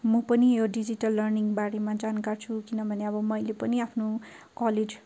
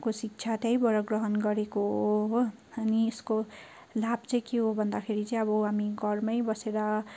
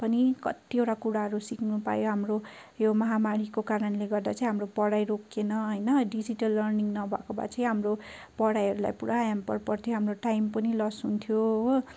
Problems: none marked